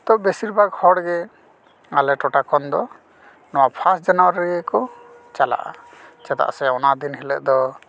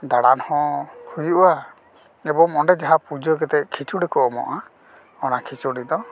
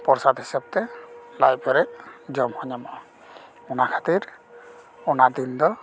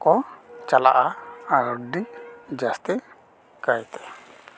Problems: background sounds at intervals